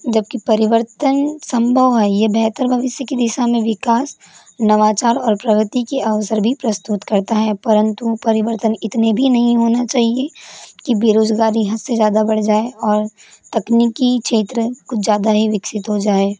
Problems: constant background noise